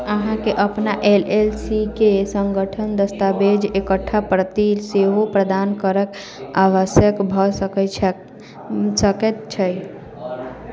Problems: continuous background conversations